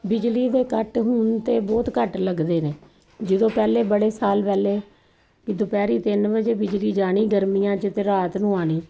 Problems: constant background noise